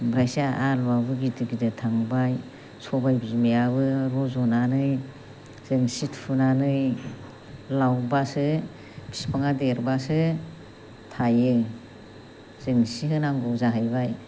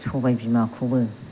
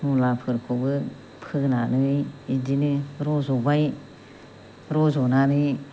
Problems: constant background noise